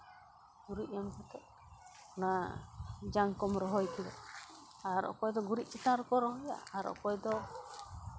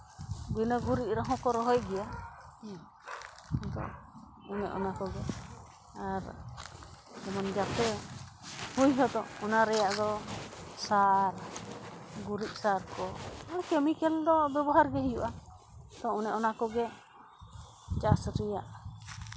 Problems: none marked